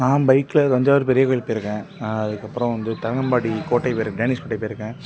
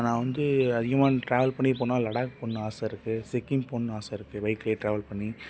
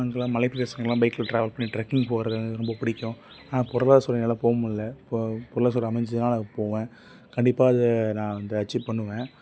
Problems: background sounds at intervals